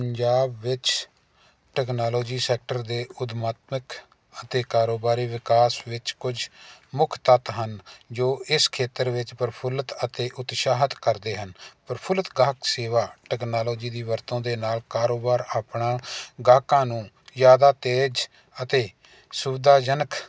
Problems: constant background noise